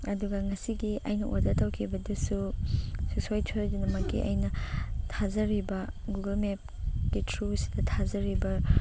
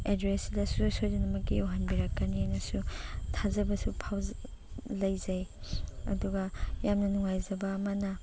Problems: constant background noise